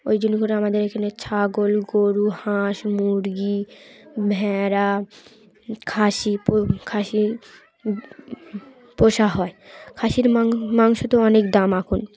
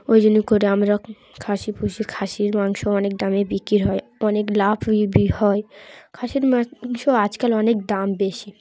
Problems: none marked